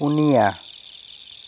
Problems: constant background noise